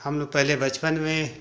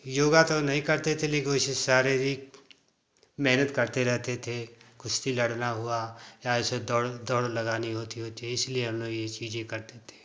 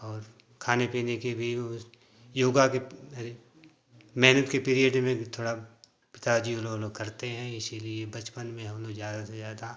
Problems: constant background noise